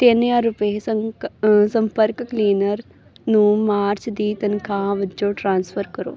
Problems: none marked